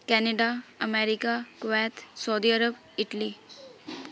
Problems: background sounds at intervals